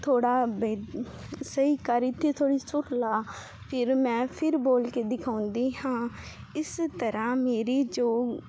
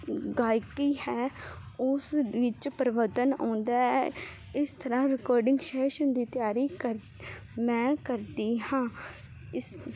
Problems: constant background noise